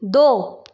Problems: none marked